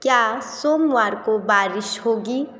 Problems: constant background noise